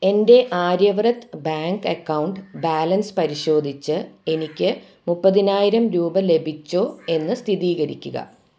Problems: background sounds at intervals